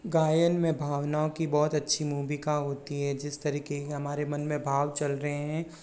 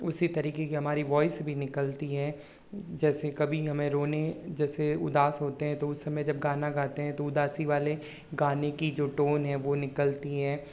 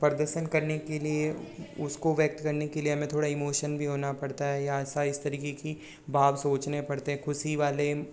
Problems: none marked